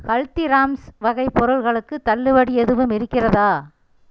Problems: none marked